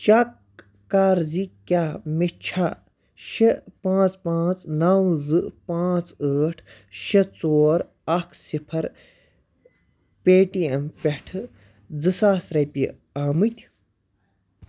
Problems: background sounds at intervals